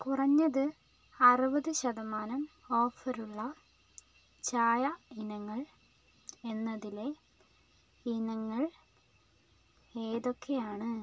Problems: none marked